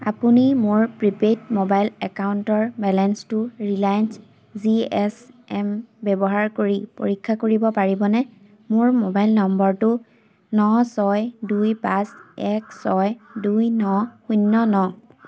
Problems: constant background noise